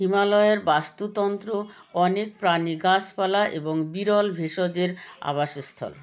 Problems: background sounds at intervals